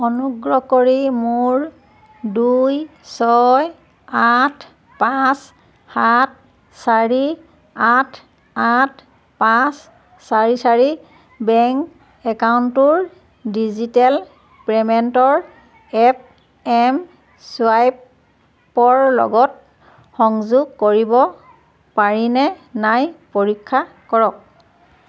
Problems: constant background noise, background conversations at intervals